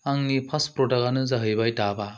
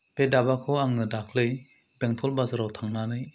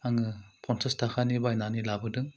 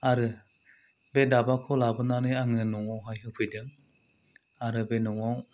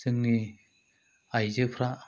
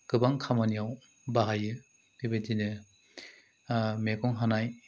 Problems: none marked